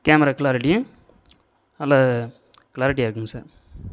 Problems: background sounds at intervals